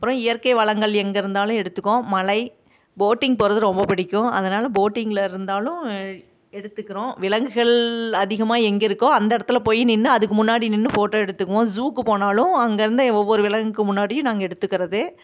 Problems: none marked